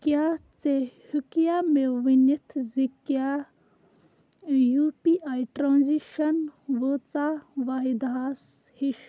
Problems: background sounds at intervals, low volume